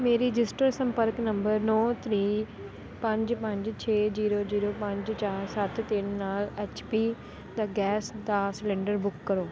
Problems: none marked